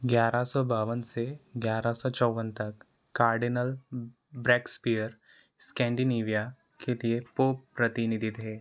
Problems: constant background noise